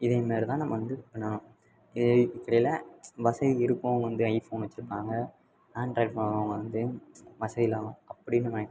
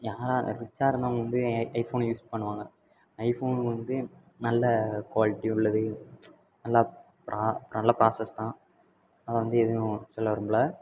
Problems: background sounds at intervals